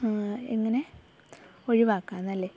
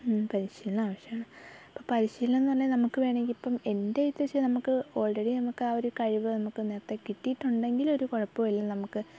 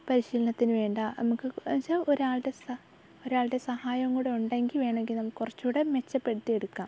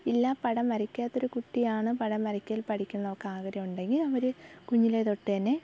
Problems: background sounds at intervals, low volume